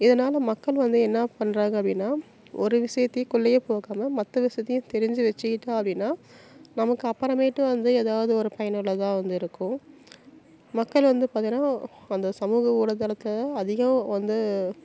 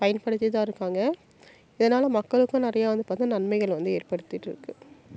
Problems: none marked